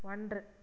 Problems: low volume